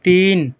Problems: none marked